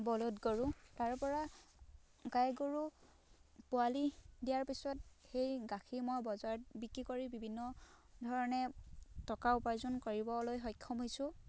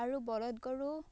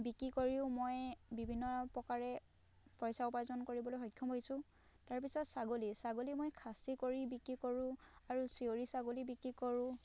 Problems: none marked